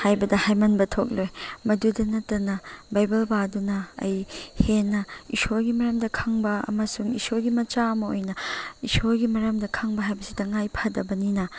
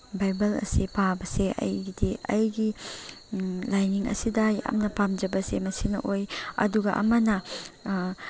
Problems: none marked